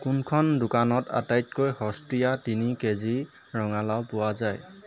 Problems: constant background noise, background conversations at intervals